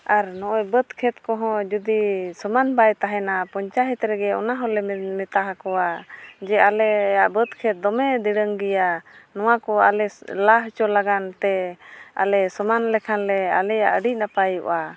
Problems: background sounds at intervals